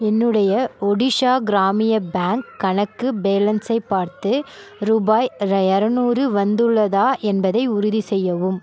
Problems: none marked